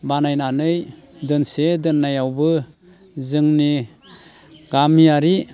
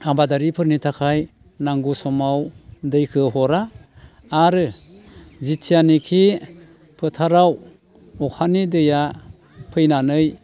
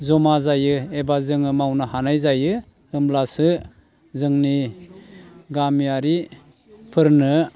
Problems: constant background noise